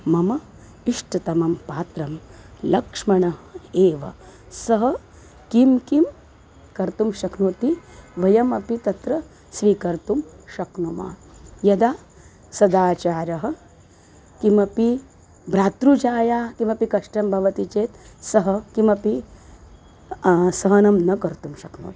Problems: constant background noise